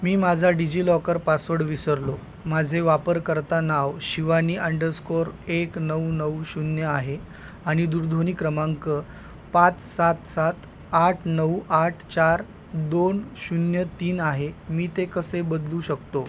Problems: constant background noise